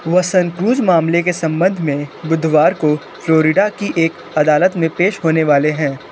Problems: constant background noise